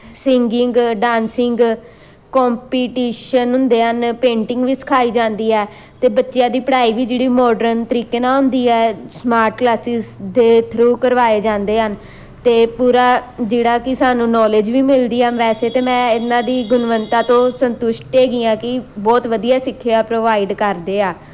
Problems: constant background noise